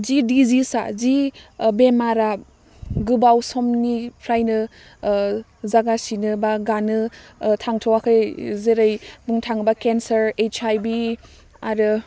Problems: none marked